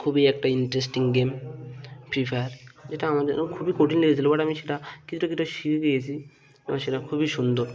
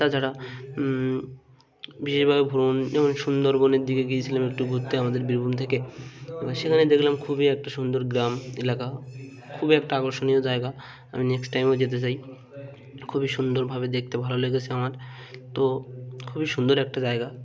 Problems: constant background noise, background conversations at intervals